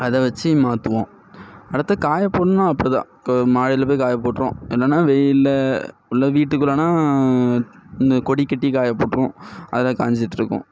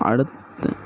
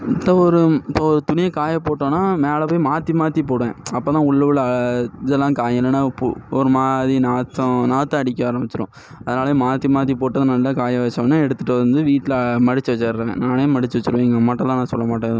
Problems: background sounds at intervals